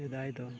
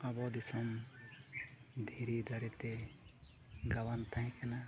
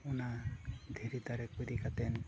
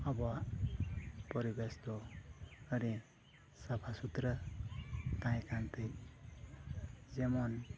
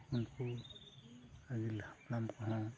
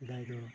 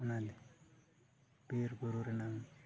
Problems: constant background noise, low volume